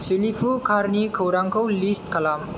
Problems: constant background noise